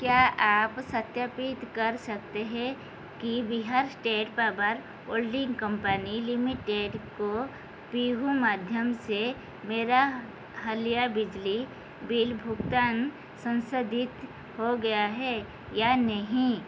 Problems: constant background noise